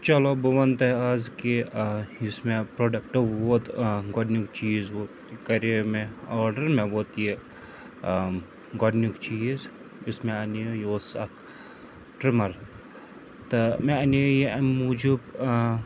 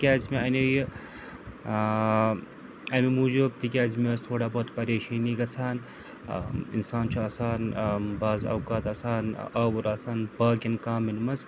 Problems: constant background noise